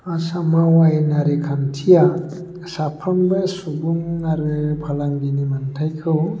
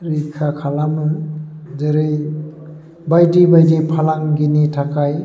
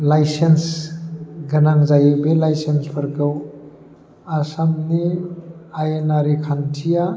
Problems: constant background noise